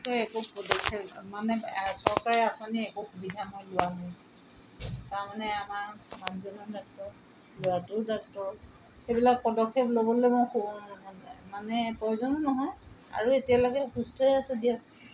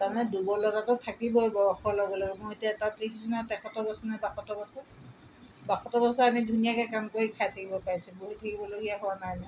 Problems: background sounds at intervals